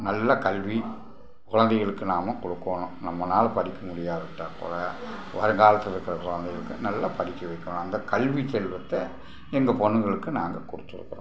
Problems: background sounds at intervals